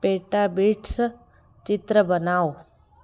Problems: continuous background conversations, echo